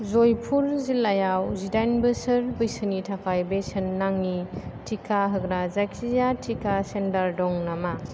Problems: none marked